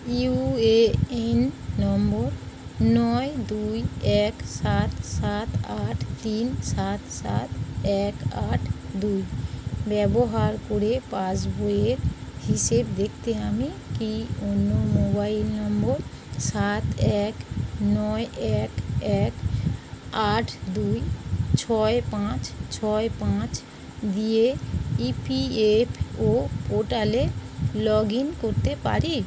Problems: constant background noise